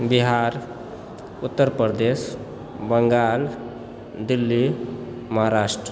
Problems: background conversations at intervals